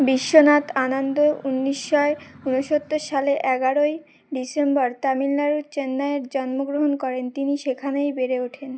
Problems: background sounds at intervals